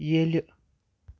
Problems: background sounds at intervals